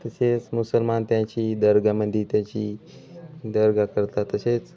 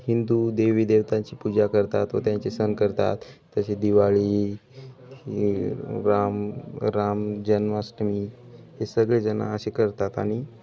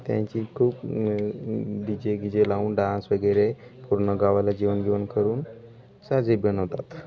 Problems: background conversations at intervals